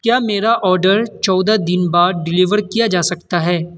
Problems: constant background noise